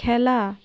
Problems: constant background noise